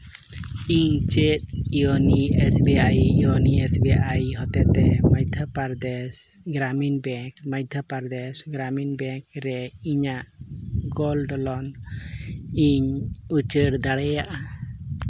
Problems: constant background noise